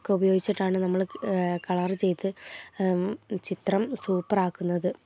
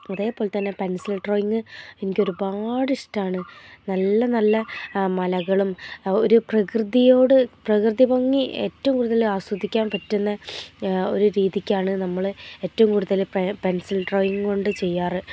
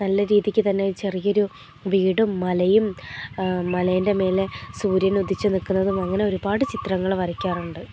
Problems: low volume